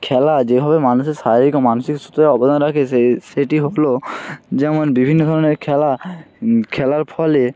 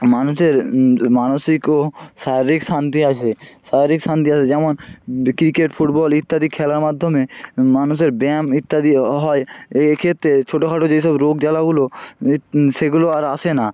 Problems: background sounds at intervals